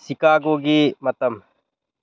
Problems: none marked